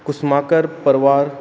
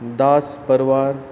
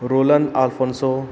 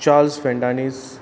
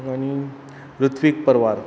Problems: constant background noise